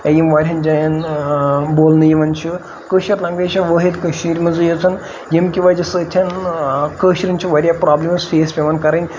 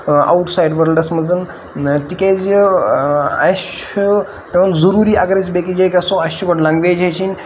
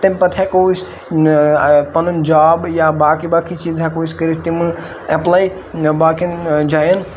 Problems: constant background noise